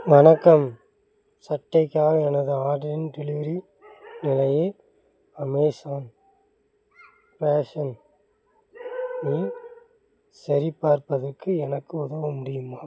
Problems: background sounds at intervals